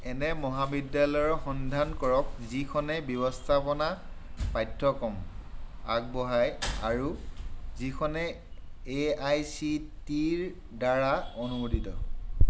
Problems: none marked